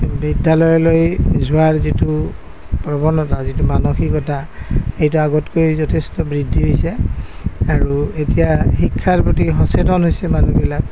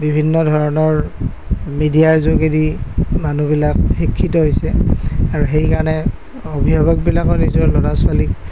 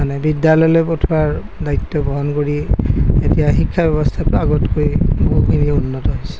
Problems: none marked